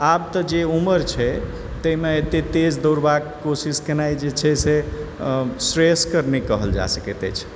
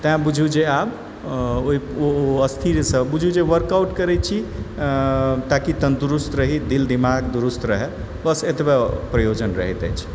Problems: background sounds at intervals, background conversations at intervals